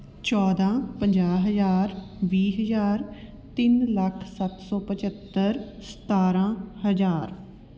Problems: constant background noise